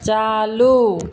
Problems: none marked